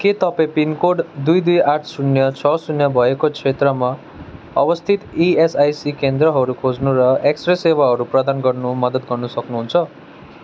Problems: continuous background conversations